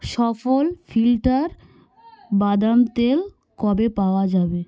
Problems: background conversations at intervals